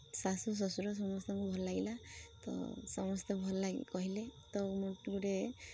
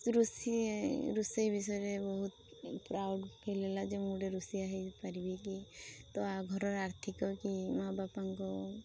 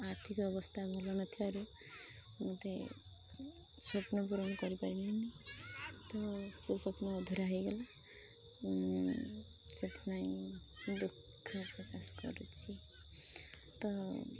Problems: constant background noise, continuous background conversations